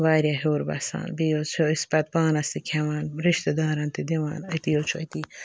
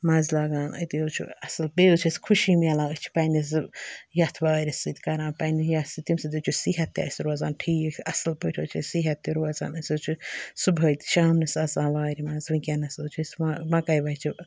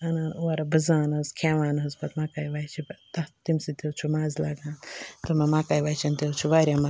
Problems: background sounds at intervals